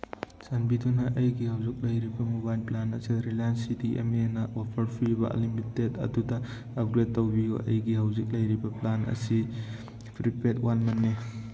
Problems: none marked